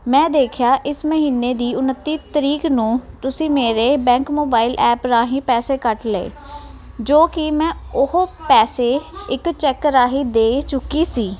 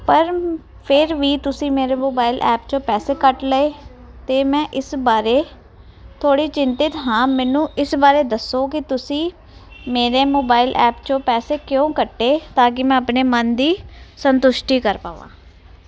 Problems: continuous background conversations